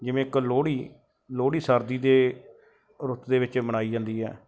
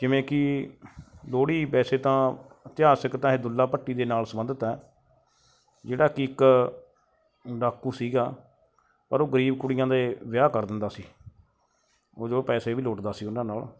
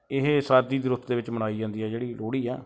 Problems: background sounds at intervals